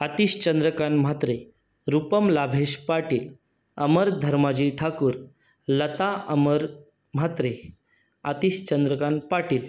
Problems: none marked